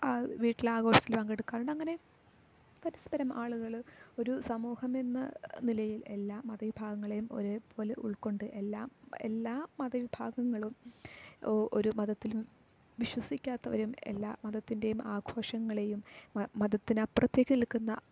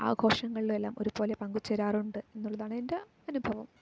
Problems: low volume